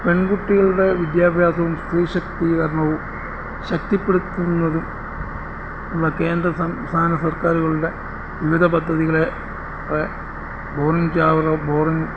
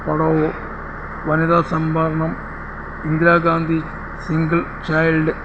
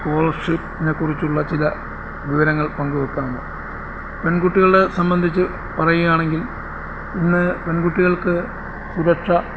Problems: constant background noise